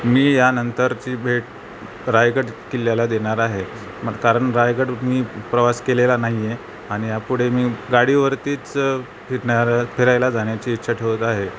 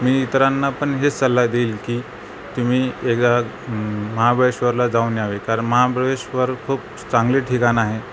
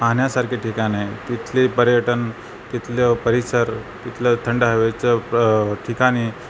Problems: constant background noise